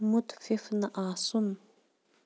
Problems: none marked